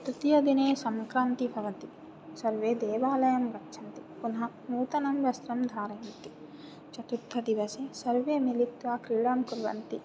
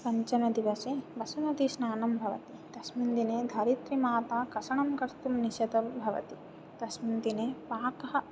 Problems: background sounds at intervals